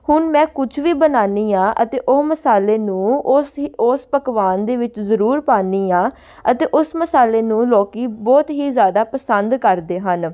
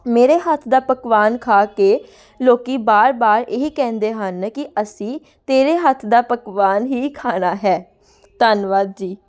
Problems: background sounds at intervals, background conversations at intervals